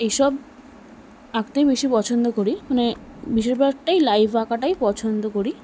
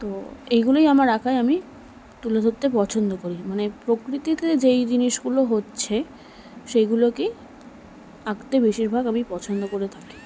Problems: none marked